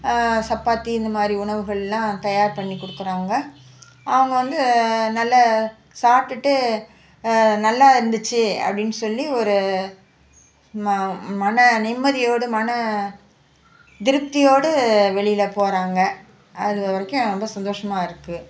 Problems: background conversations at intervals